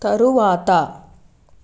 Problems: constant background noise